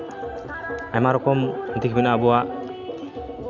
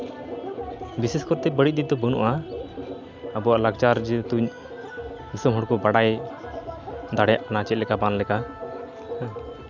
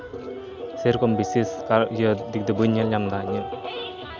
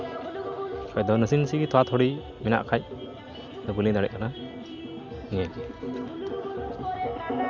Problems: background sounds at intervals